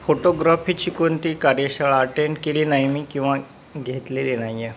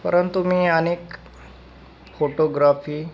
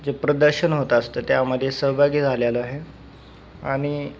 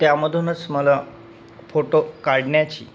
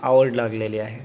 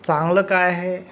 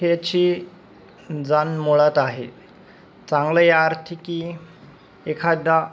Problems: constant background noise